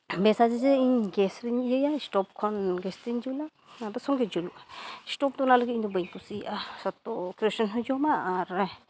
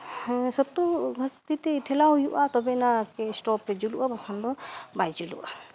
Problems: none marked